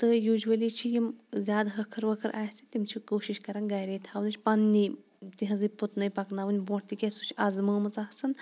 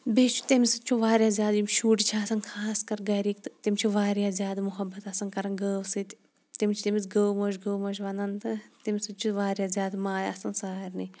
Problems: background sounds at intervals